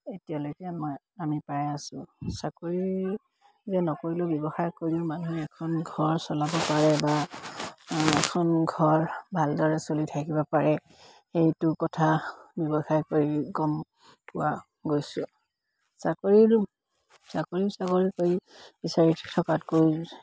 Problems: constant background noise